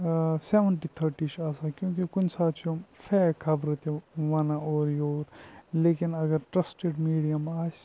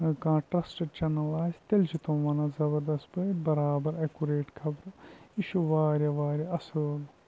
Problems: constant background noise, low volume